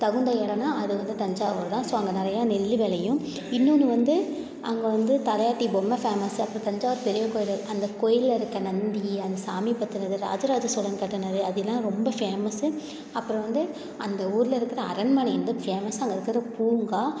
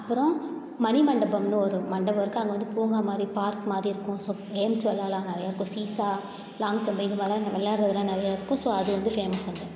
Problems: none marked